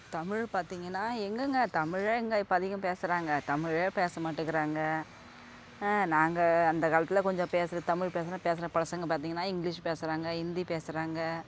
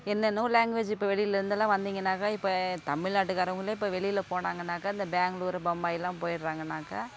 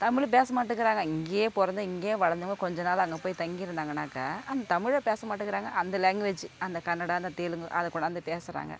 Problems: constant background noise